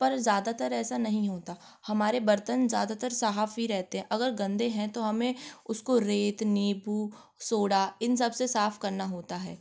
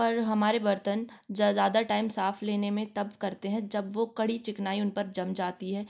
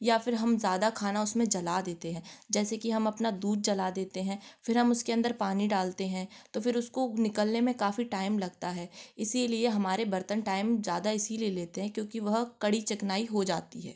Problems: background sounds at intervals